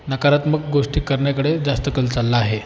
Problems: constant background noise, continuous background conversations